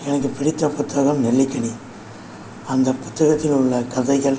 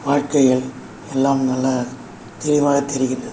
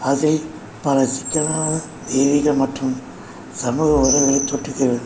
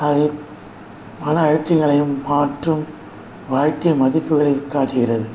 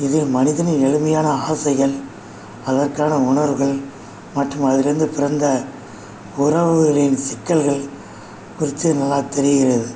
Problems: constant background noise